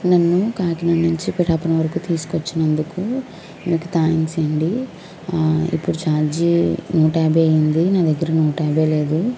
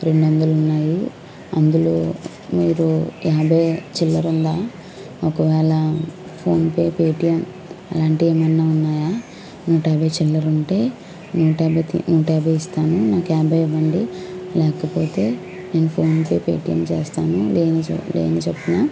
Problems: background sounds at intervals